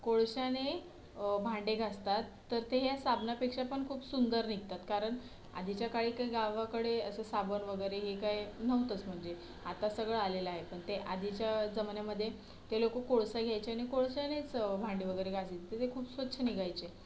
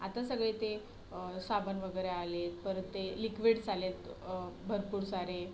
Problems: constant background noise, background conversations at intervals